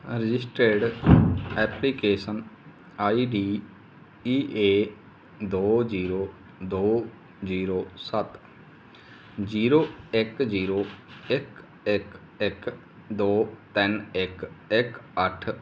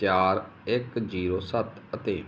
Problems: none marked